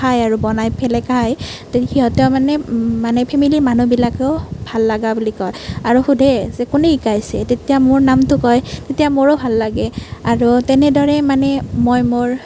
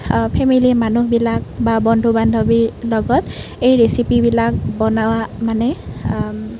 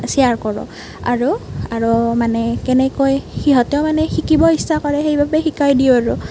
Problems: constant background noise